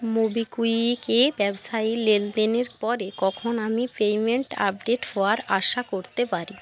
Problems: constant background noise